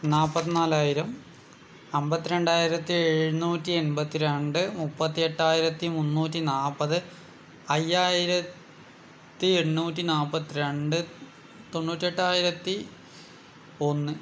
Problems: none marked